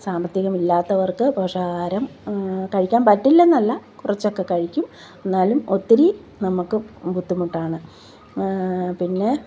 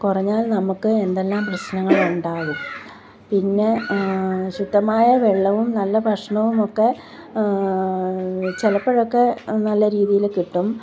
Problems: background sounds at intervals, background conversations at intervals